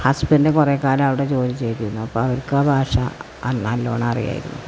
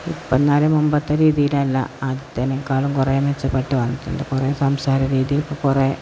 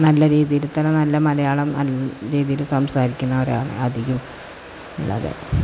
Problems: constant background noise